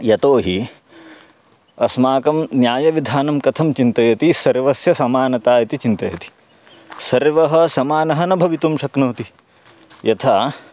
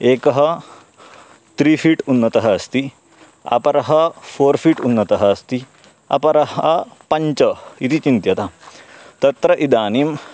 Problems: background sounds at intervals, background conversations at intervals